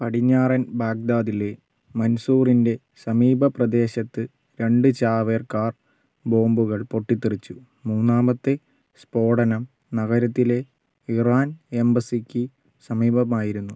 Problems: none marked